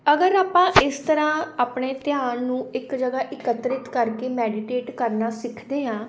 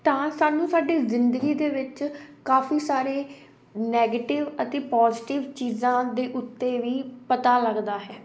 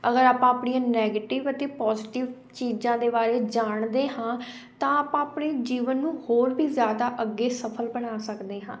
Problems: constant background noise